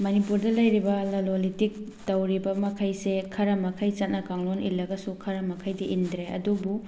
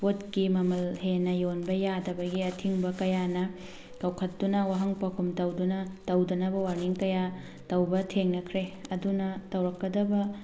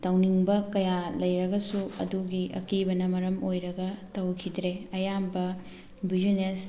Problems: background sounds at intervals